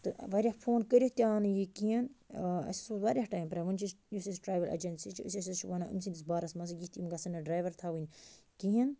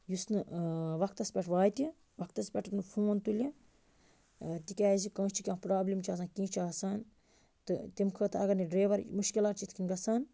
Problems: none marked